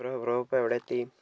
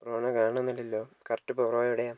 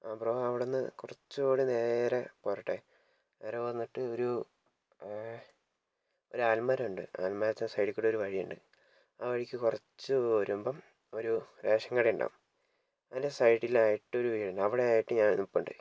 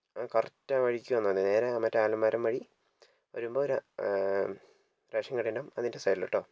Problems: low volume